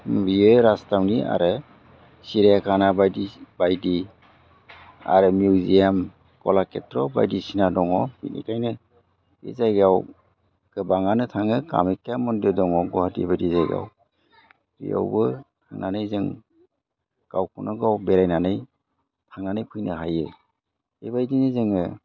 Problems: constant background noise